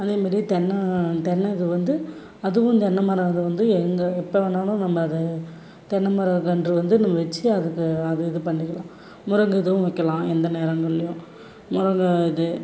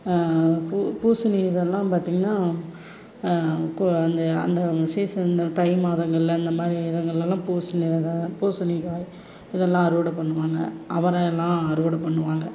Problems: background sounds at intervals